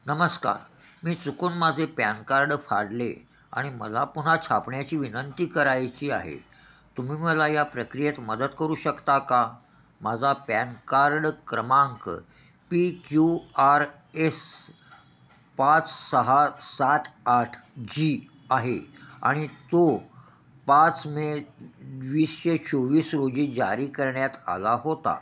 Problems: none marked